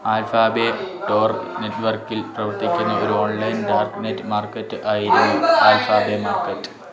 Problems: continuous background conversations